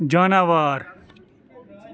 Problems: background conversations at intervals